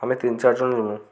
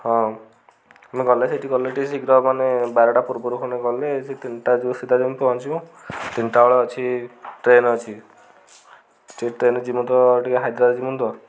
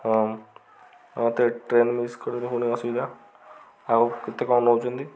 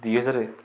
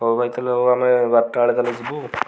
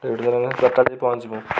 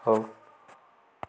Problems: constant background noise